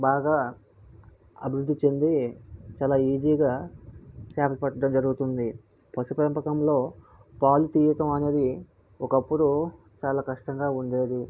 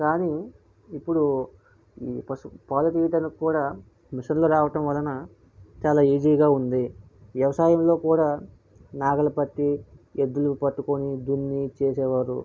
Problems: none marked